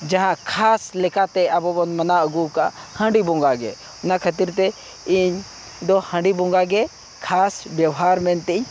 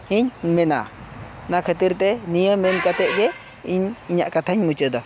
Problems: background sounds at intervals